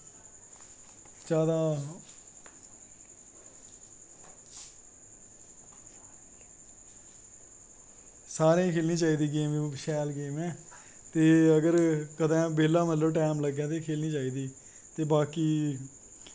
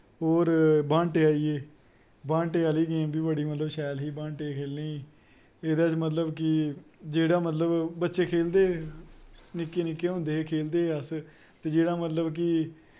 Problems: constant background noise